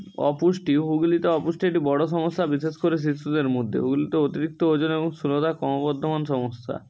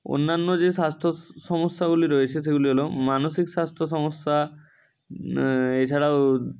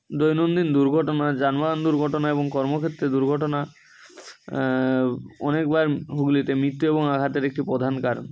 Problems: none marked